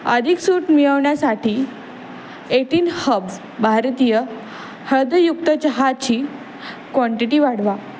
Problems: none marked